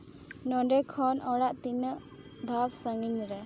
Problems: constant background noise